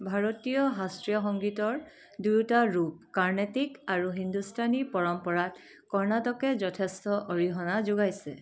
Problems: none marked